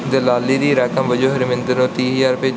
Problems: background sounds at intervals